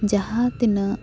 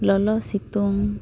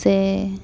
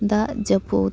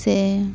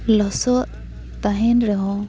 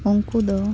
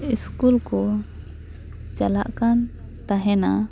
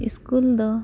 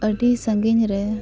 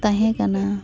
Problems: background sounds at intervals, background conversations at intervals